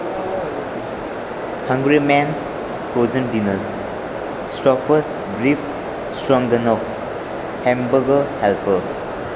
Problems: constant background noise